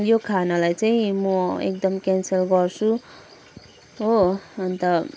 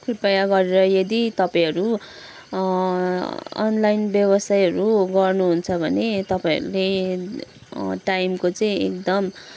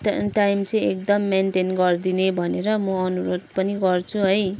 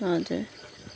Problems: background sounds at intervals